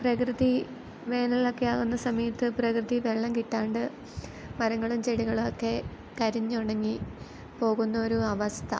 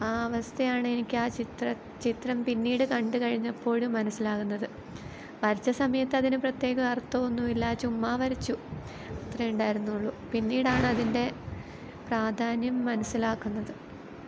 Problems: background sounds at intervals